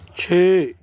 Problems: background conversations at intervals